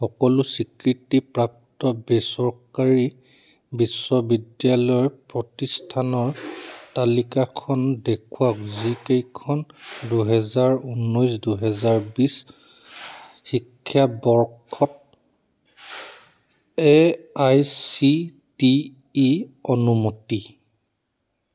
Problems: background sounds at intervals